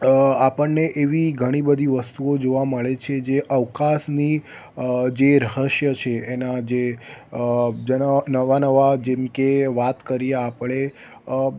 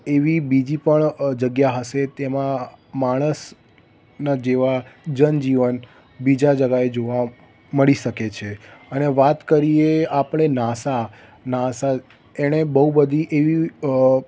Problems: none marked